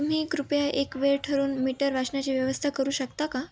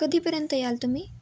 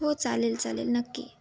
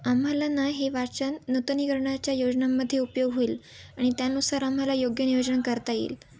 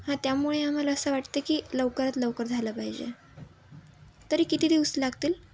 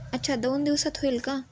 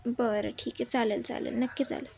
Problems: background sounds at intervals, background conversations at intervals